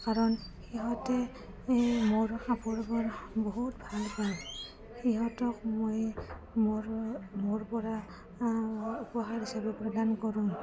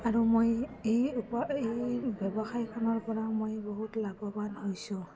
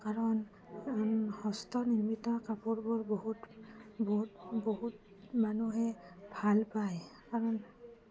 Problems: none marked